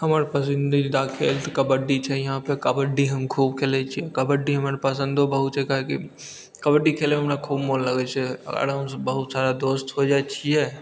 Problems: none marked